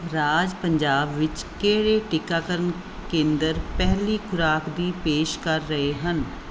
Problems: background sounds at intervals